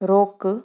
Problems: none marked